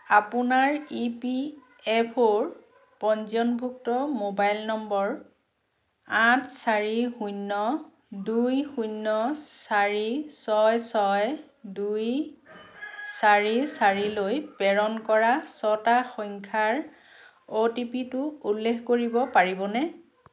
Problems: background sounds at intervals, background conversations at intervals